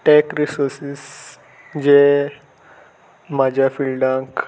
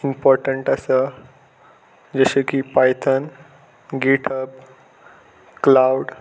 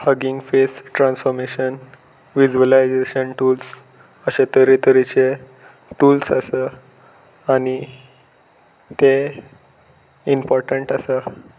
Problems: constant background noise